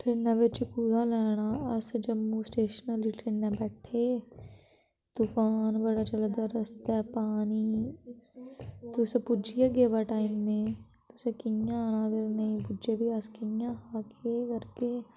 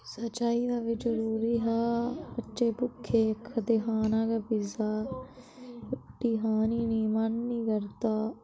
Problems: none marked